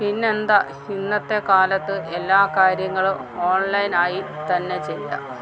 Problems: low volume